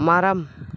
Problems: none marked